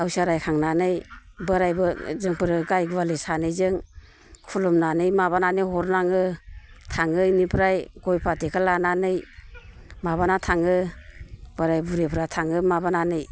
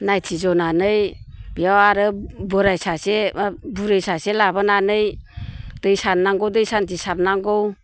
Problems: none marked